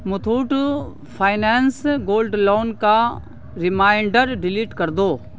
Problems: constant background noise